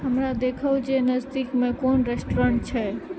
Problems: low volume